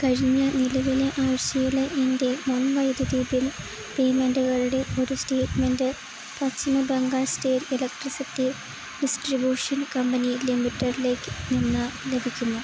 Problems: constant background noise